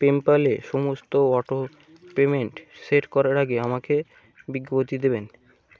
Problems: constant background noise